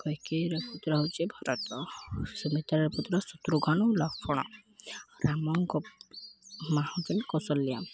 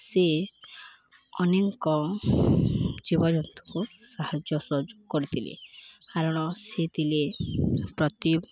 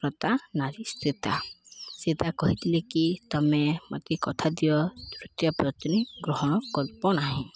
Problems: none marked